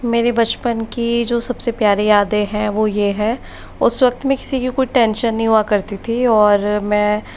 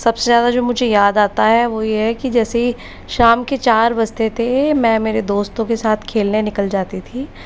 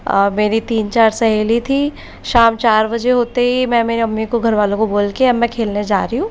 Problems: constant background noise